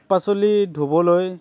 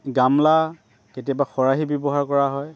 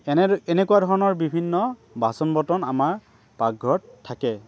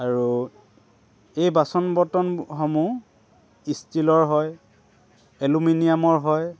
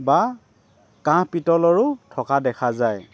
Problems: none marked